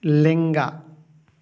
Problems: echo